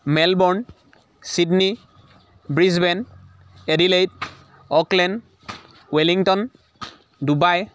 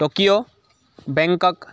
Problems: constant background noise, background conversations at intervals